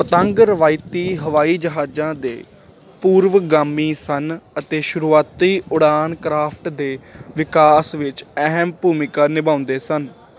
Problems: constant background noise